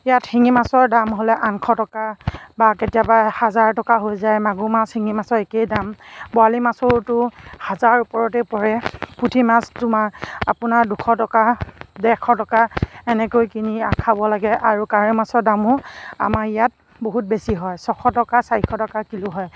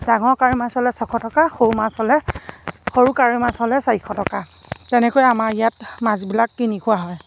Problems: none marked